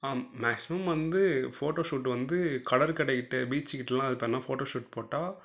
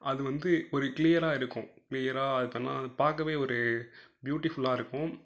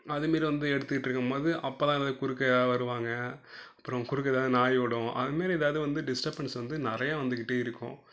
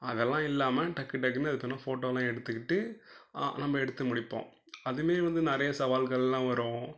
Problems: low volume